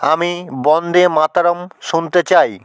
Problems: none marked